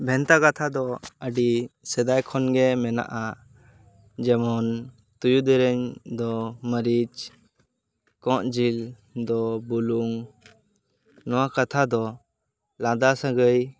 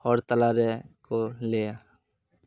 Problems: none marked